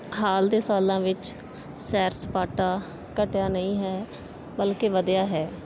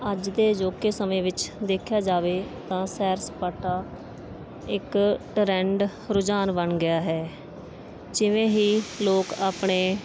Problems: background sounds at intervals